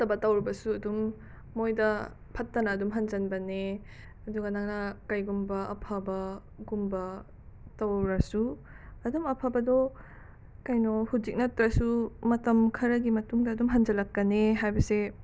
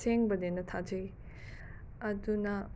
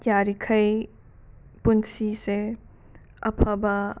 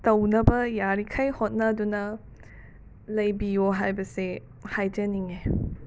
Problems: background sounds at intervals